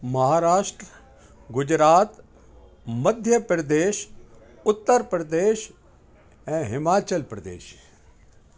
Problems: constant background noise, echo